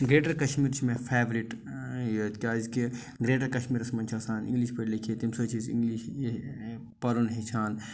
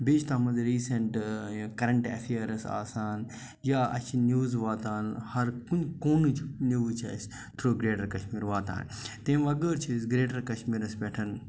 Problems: none marked